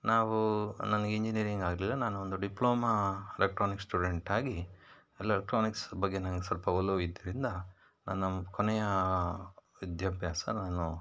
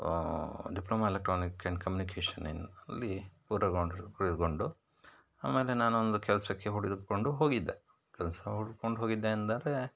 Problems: none marked